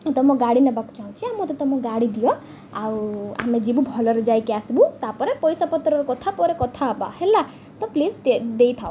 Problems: none marked